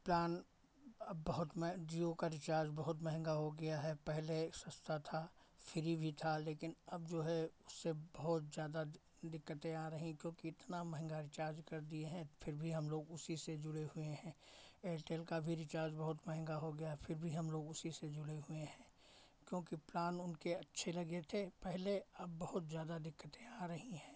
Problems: none marked